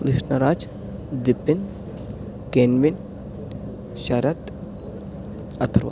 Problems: low volume